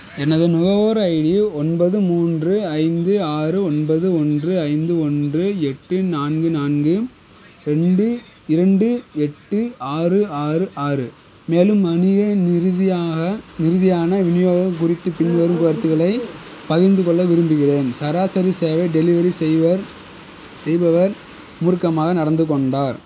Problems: constant background noise